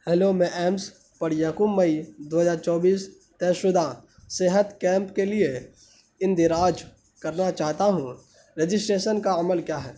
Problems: constant background noise